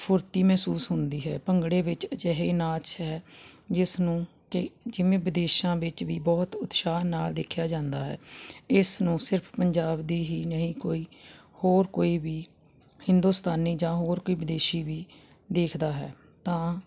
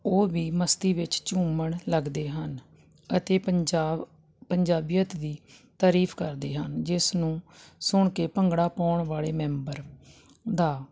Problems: constant background noise